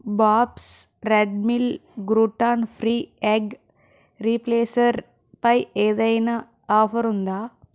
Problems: none marked